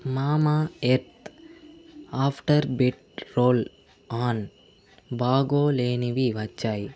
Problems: constant background noise